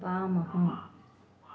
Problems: constant background noise